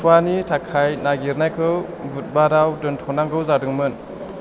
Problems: constant background noise